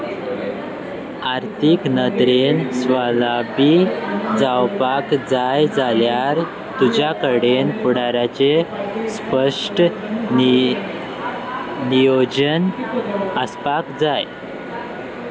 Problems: constant background noise, continuous background conversations